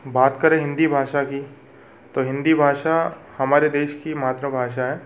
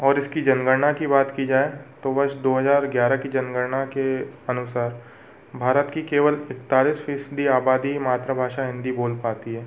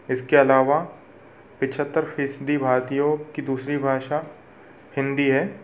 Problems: constant background noise, background conversations at intervals